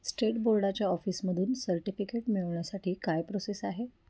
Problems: none marked